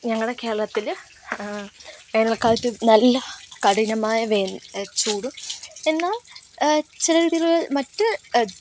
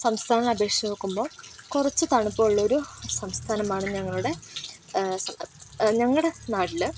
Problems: constant background noise